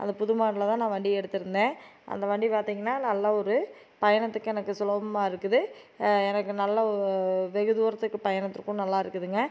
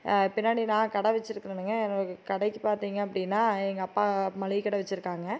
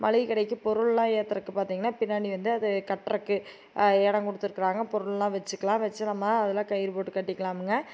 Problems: none marked